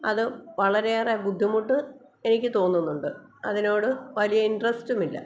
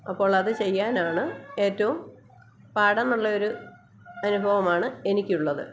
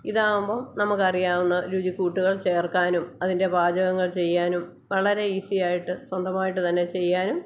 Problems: none marked